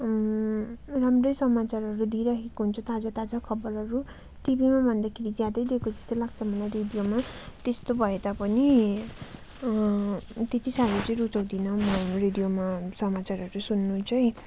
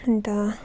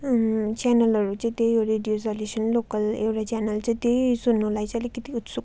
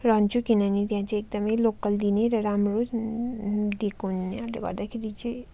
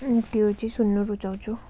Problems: constant background noise